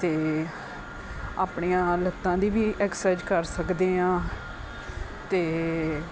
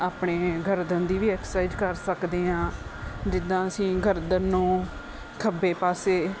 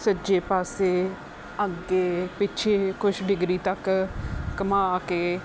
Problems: constant background noise